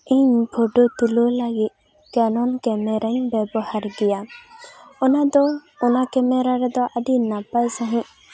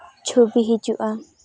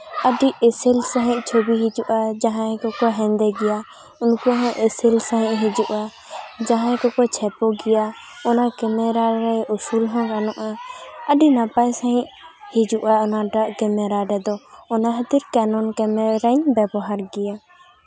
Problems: constant background noise